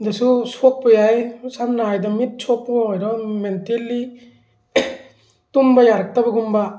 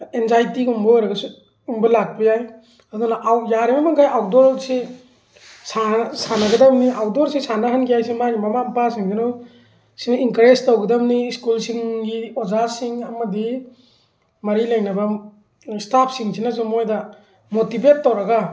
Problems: background sounds at intervals